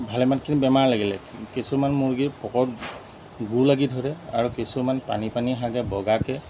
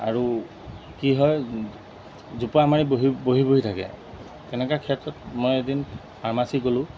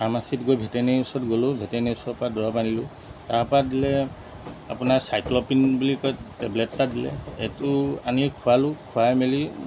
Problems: constant background noise